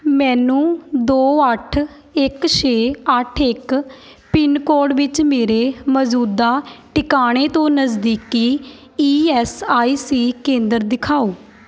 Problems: background sounds at intervals, background conversations at intervals